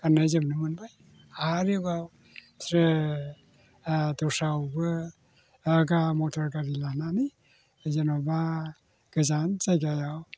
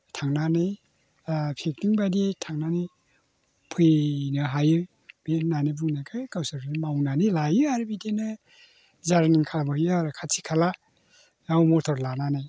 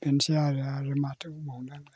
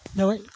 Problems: constant background noise